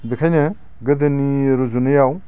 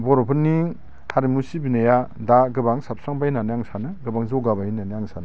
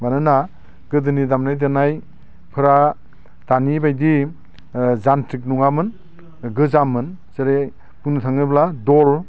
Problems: constant background noise